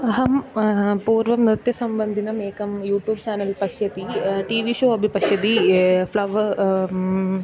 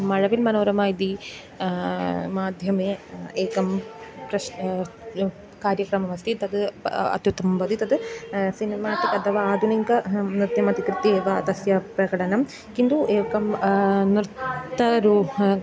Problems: background sounds at intervals